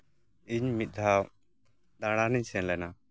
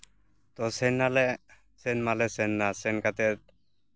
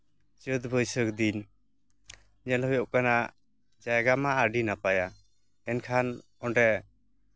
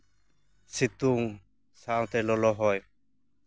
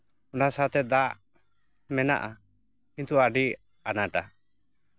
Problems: none marked